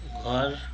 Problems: none marked